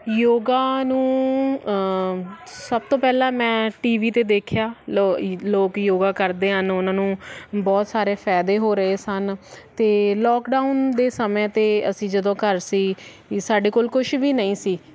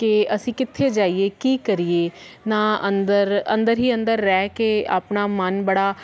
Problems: constant background noise